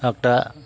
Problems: constant background noise